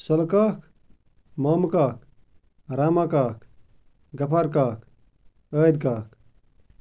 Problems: none marked